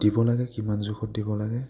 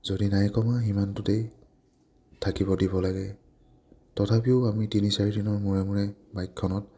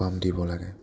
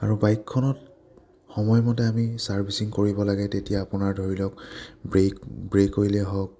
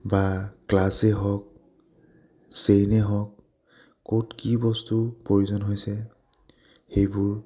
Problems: none marked